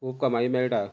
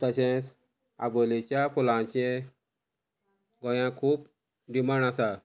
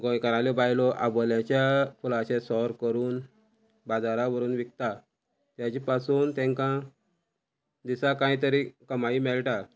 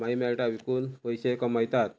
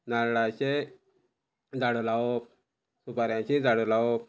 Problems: constant background noise